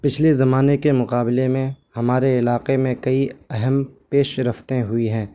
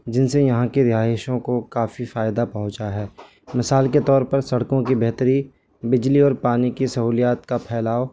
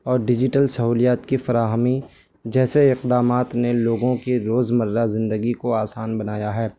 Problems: constant background noise